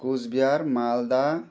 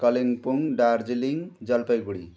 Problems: continuous background conversations